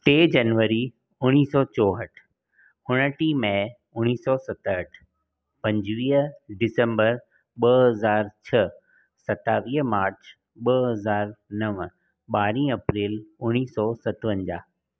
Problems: none marked